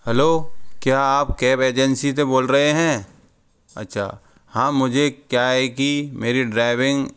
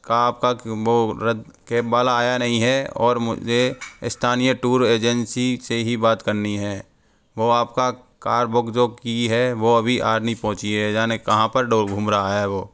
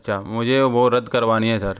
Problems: background sounds at intervals